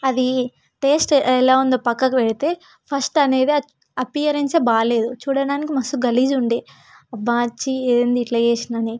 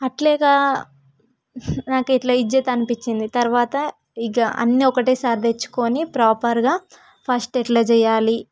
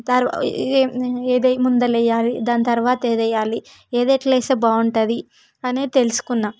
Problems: none marked